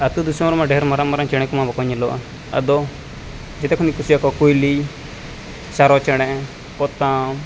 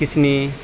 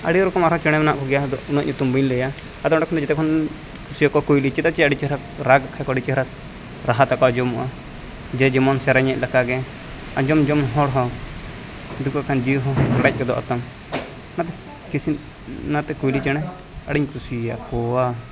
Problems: constant background noise, continuous background conversations